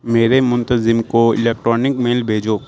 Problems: none marked